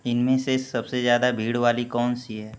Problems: constant background noise